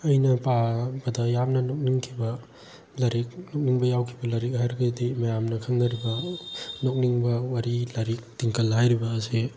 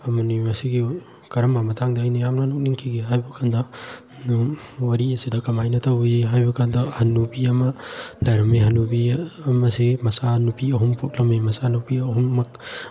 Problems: background sounds at intervals